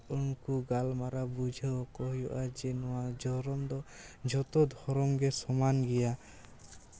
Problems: constant background noise